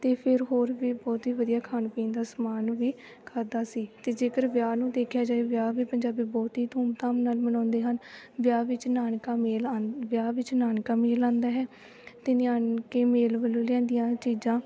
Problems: none marked